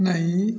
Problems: none marked